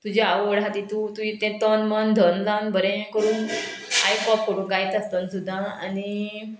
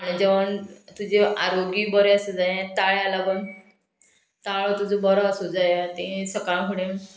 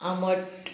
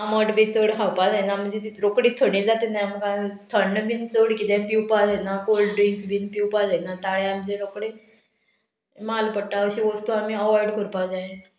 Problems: background sounds at intervals